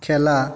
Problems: echo